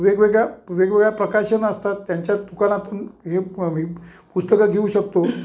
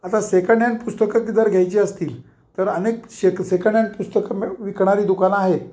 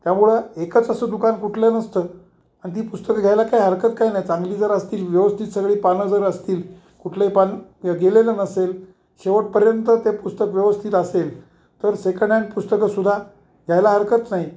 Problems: background sounds at intervals